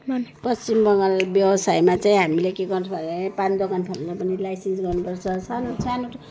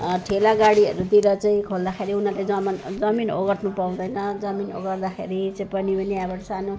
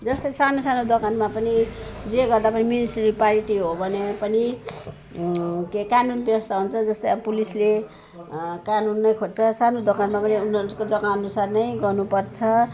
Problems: background sounds at intervals